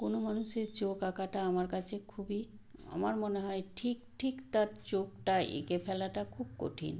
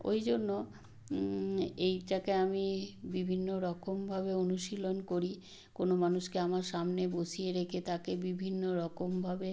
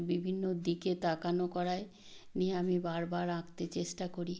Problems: background sounds at intervals